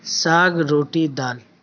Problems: constant background noise